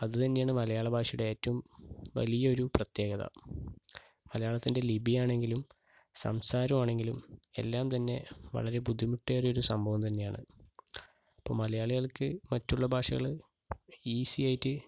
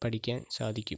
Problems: background sounds at intervals, low volume